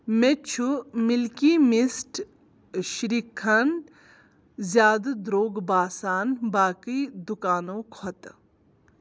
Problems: none marked